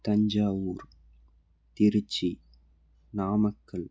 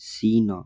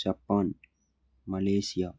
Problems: low volume